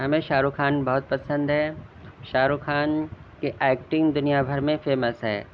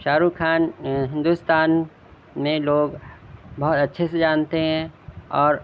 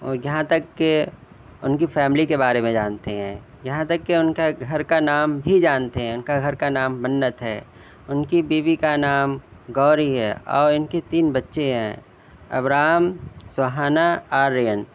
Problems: none marked